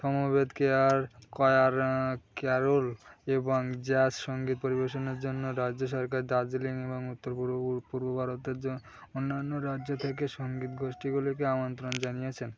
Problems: none marked